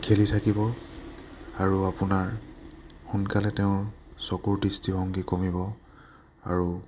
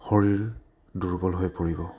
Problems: low volume